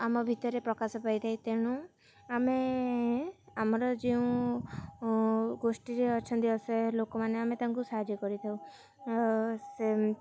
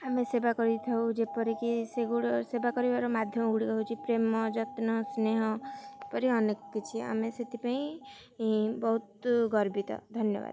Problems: none marked